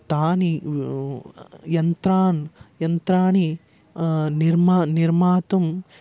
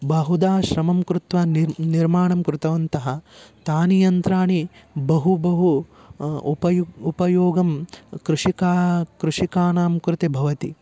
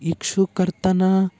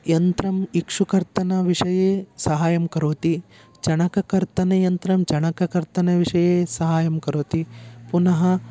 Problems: none marked